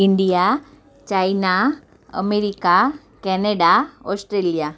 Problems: none marked